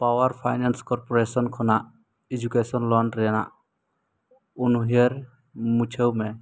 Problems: none marked